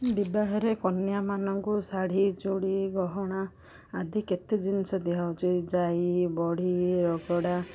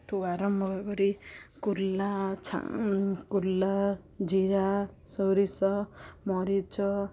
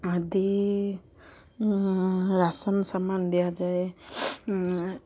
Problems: none marked